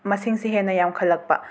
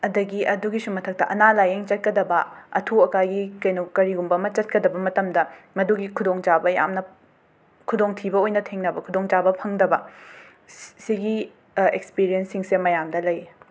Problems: background sounds at intervals